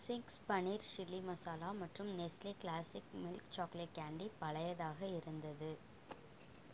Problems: low volume